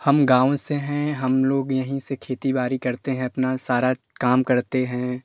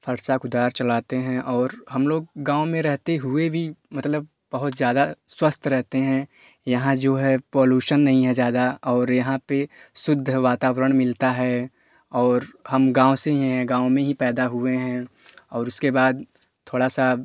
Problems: none marked